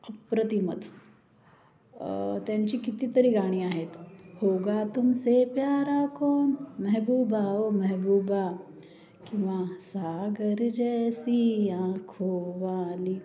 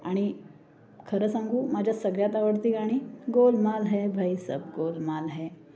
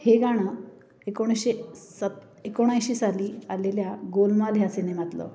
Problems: background sounds at intervals, background conversations at intervals